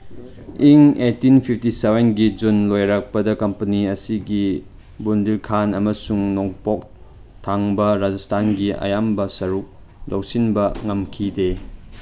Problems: background sounds at intervals